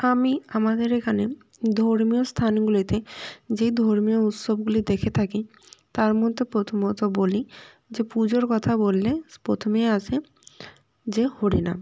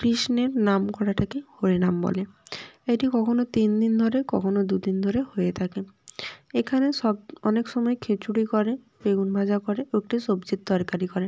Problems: none marked